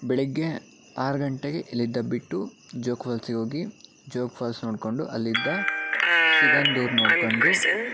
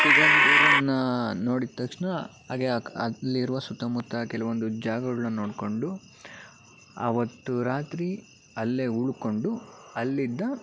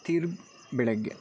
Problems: background sounds at intervals